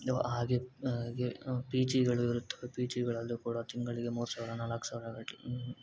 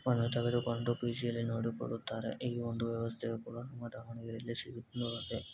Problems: constant background noise